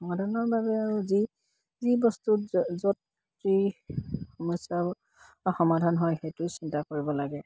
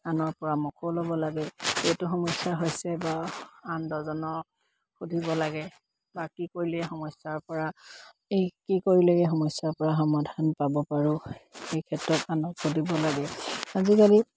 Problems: constant background noise